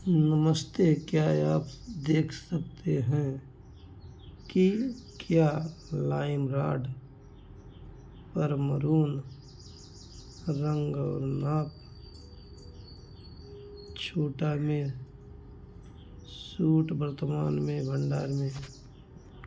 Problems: constant background noise